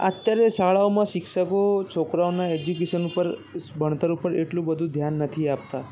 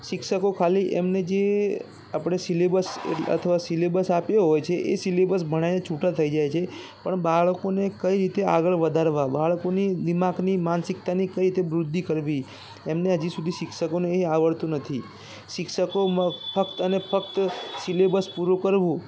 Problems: constant background noise, background conversations at intervals